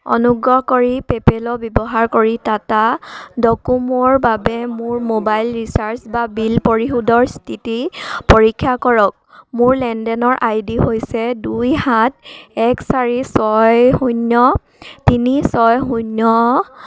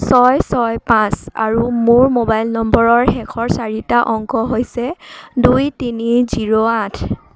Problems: background sounds at intervals